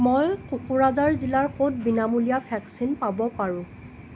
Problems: constant background noise